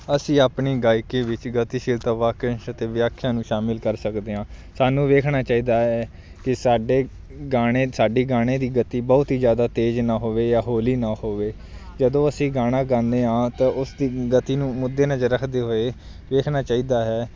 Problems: background sounds at intervals